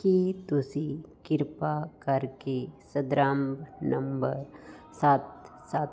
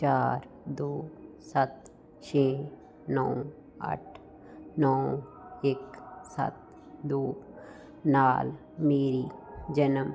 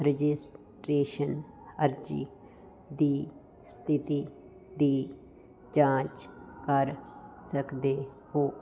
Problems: none marked